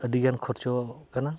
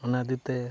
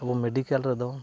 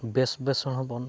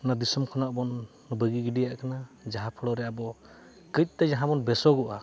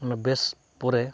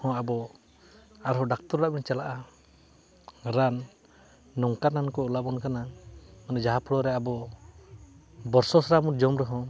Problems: constant background noise